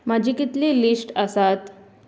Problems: constant background noise